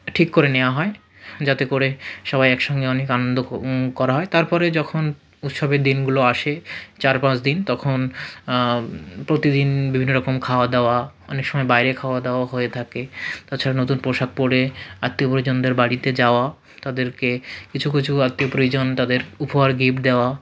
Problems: none marked